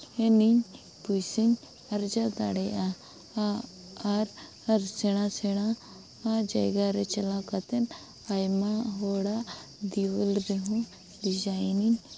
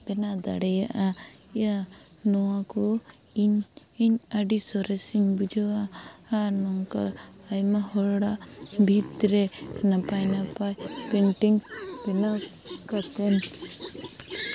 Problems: background sounds at intervals